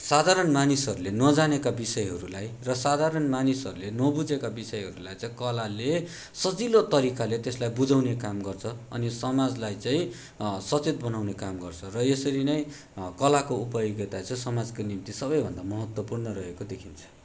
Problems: background sounds at intervals